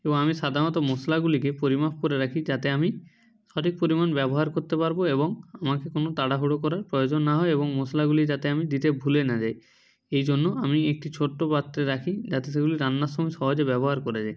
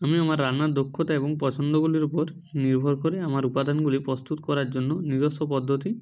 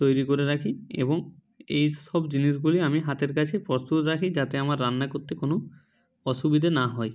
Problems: background sounds at intervals